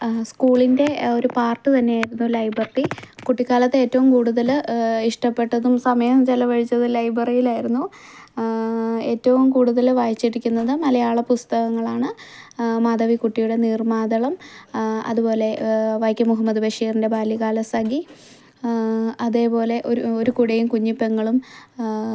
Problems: none marked